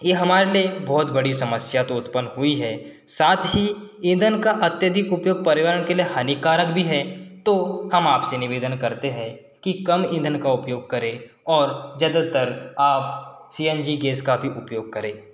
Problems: none marked